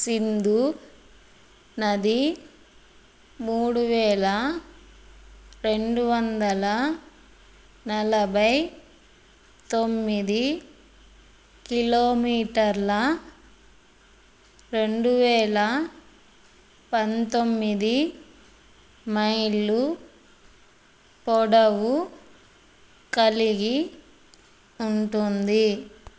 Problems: none marked